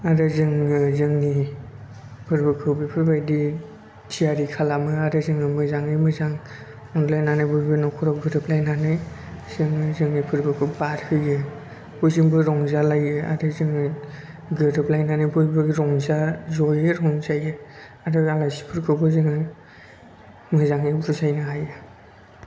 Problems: low volume